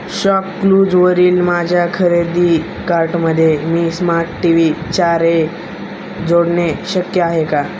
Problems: constant background noise